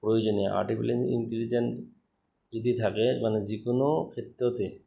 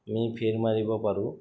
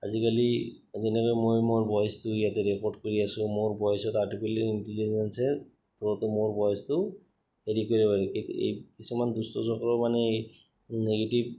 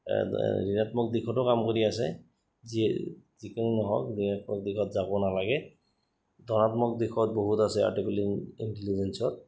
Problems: background sounds at intervals